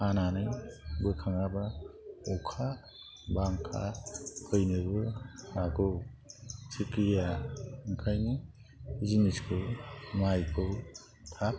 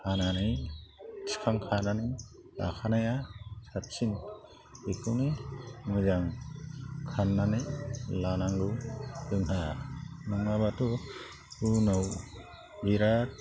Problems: constant background noise